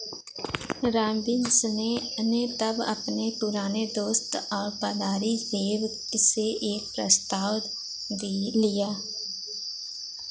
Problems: constant background noise